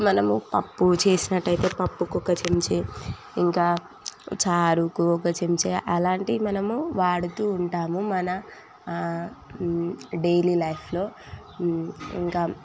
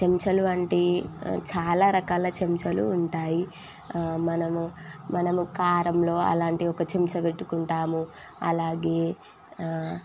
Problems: none marked